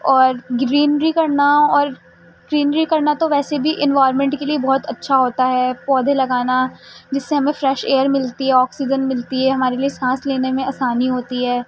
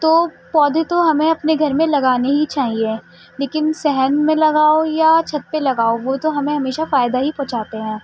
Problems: constant background noise